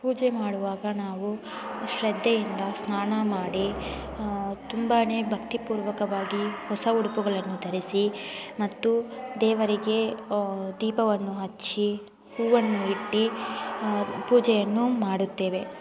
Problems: constant background noise